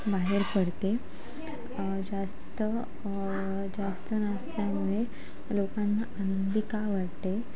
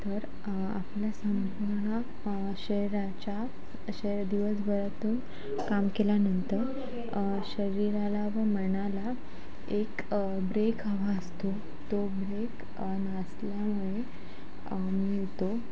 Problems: constant background noise, background conversations at intervals